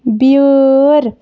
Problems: constant background noise